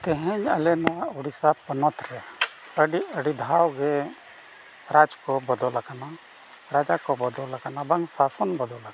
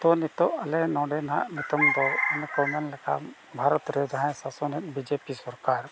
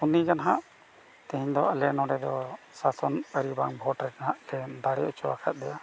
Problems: background sounds at intervals